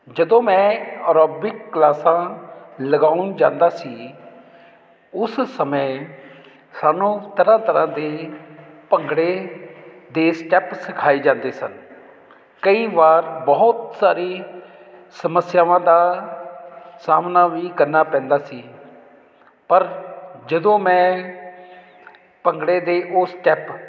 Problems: none marked